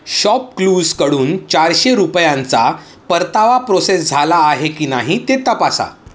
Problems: none marked